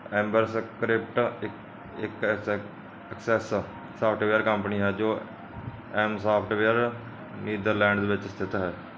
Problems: none marked